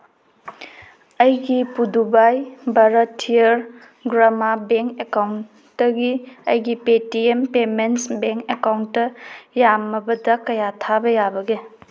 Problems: none marked